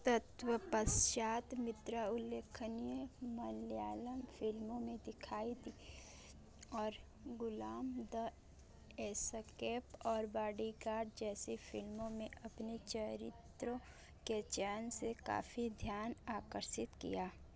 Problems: constant background noise, background conversations at intervals